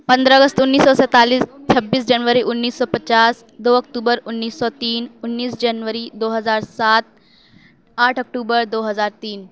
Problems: none marked